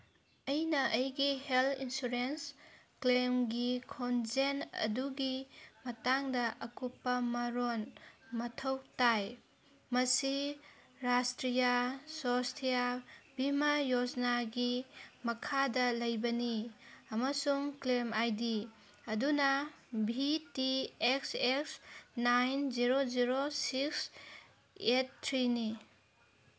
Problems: none marked